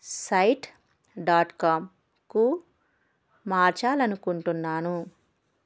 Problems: none marked